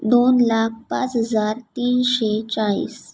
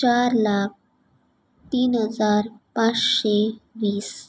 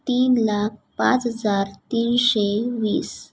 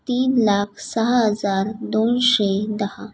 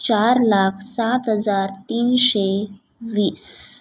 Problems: none marked